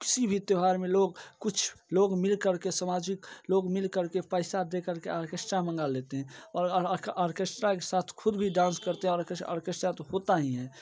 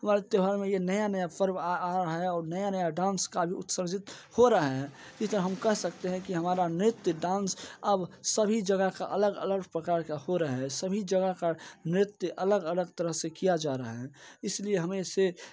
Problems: background sounds at intervals, low volume